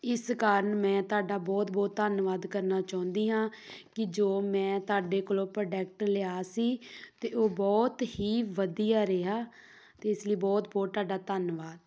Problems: background sounds at intervals